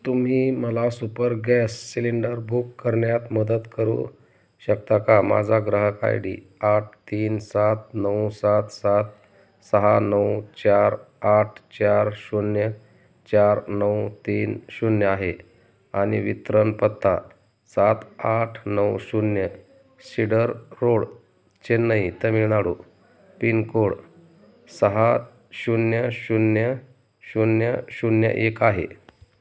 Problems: background sounds at intervals